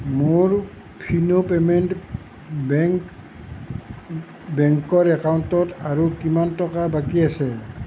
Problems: constant background noise